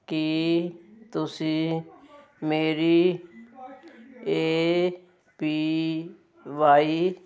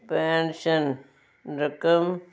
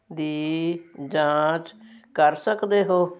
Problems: constant background noise